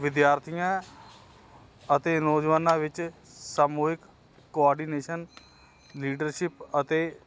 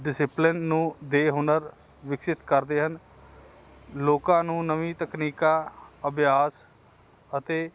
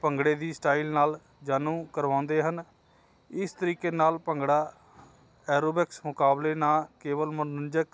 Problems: none marked